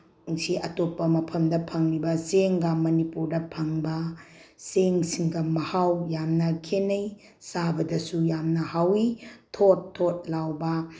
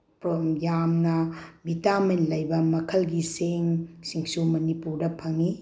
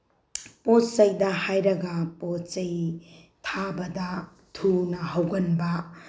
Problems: none marked